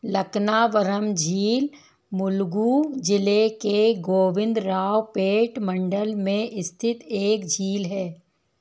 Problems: background sounds at intervals